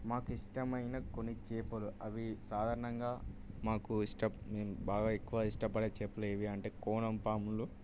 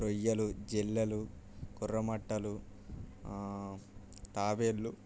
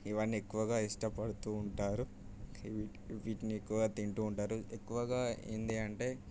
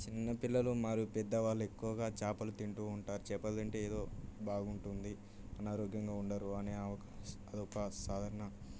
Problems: low volume